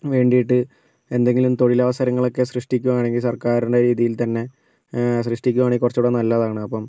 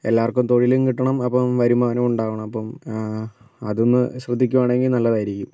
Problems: none marked